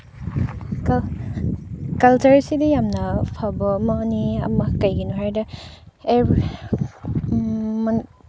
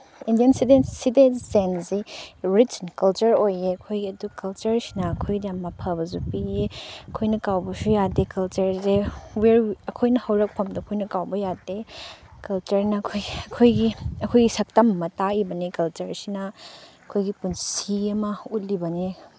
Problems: background sounds at intervals, low volume